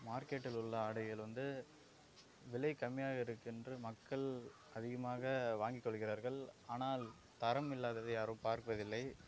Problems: background sounds at intervals